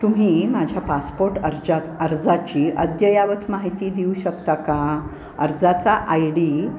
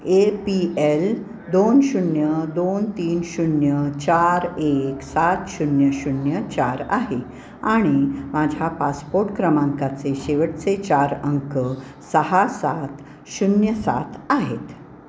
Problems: none marked